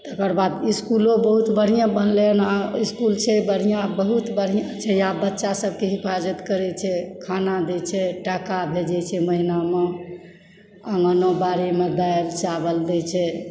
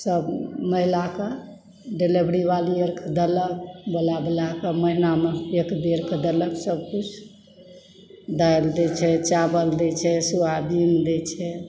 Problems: background sounds at intervals